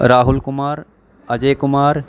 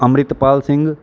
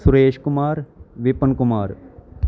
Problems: none marked